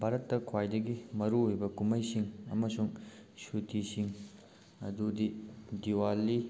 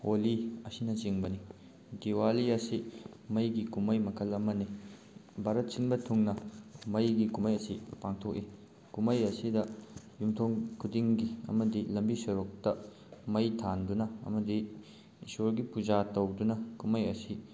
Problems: none marked